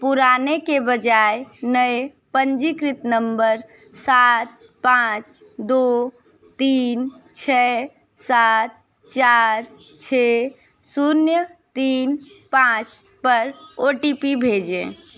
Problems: constant background noise, background conversations at intervals